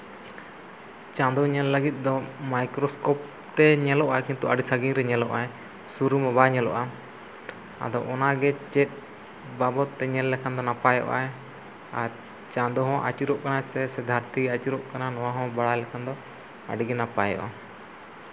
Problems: none marked